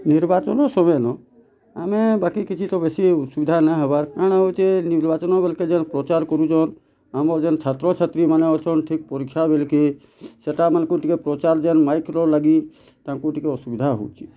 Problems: constant background noise